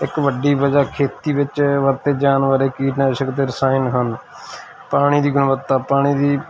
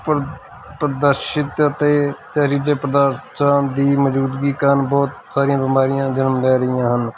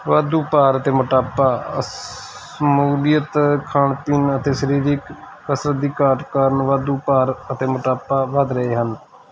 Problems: constant background noise